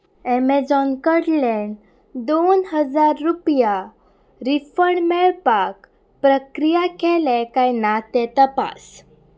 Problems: none marked